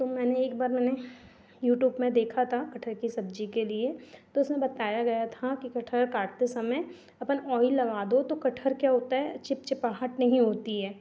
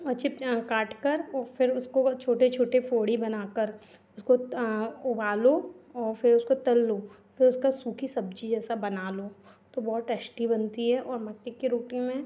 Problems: none marked